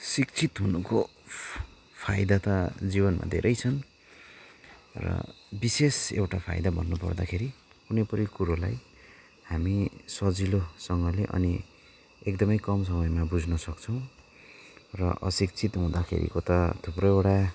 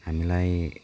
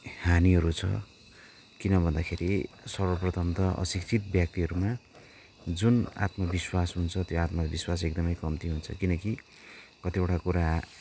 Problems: background sounds at intervals